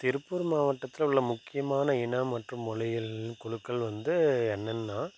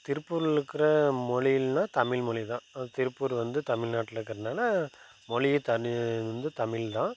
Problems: background sounds at intervals